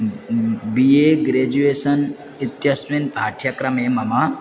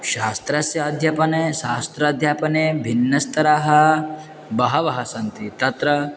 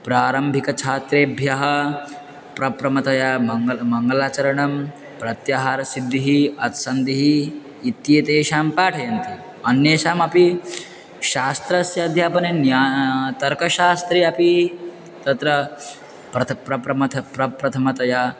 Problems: constant background noise, continuous background conversations